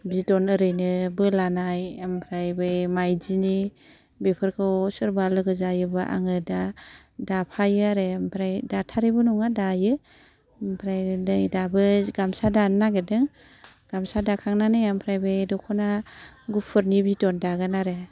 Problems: none marked